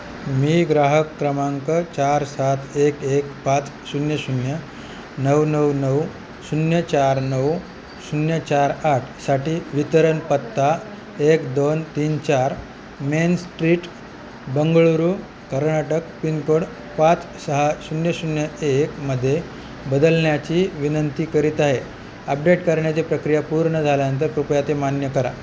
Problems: constant background noise